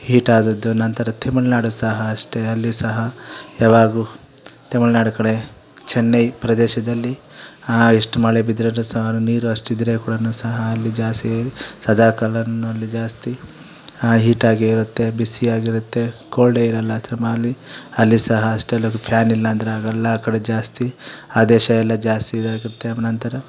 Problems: none marked